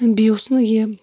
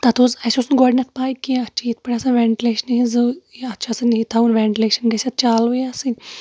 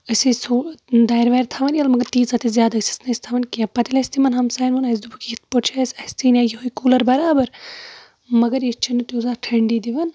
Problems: background sounds at intervals